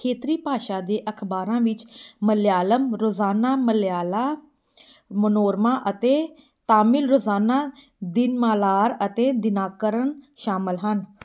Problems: none marked